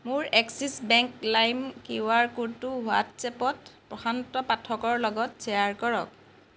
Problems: none marked